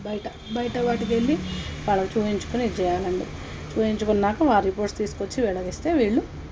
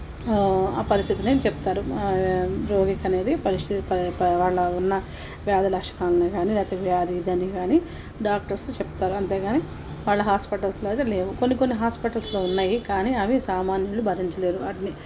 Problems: background sounds at intervals